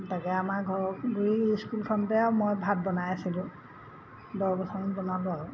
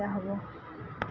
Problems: none marked